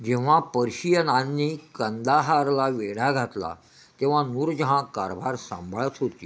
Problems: constant background noise